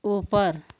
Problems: constant background noise